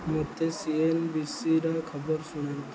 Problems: low volume